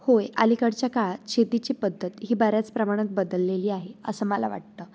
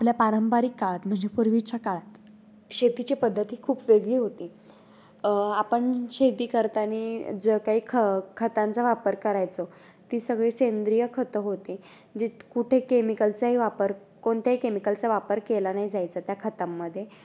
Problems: none marked